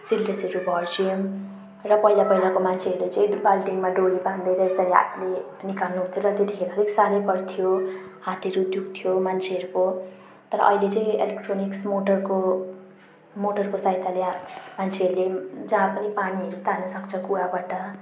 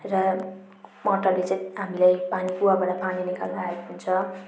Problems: none marked